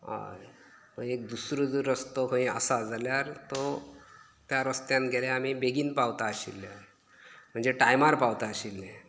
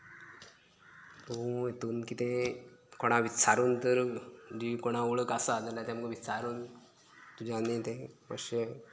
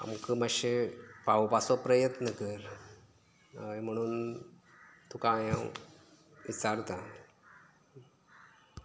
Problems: none marked